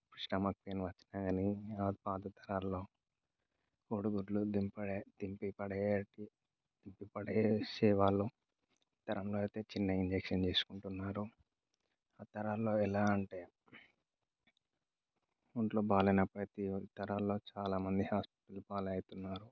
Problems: low volume